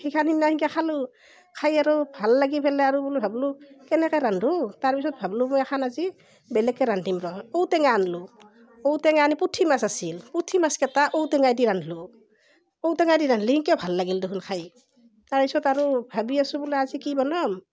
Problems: continuous background conversations